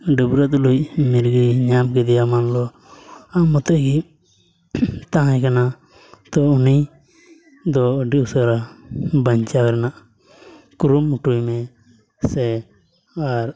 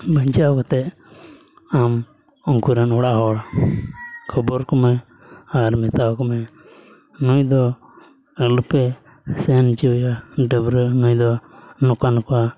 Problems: background sounds at intervals